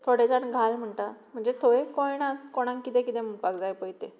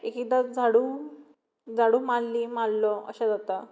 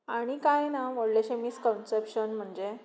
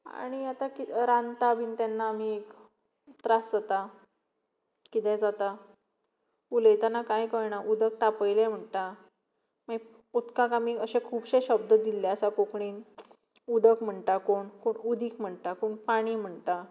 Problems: none marked